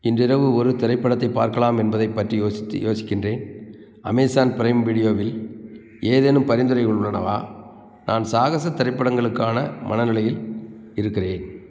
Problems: background sounds at intervals